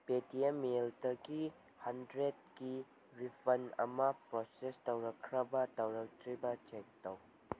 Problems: background sounds at intervals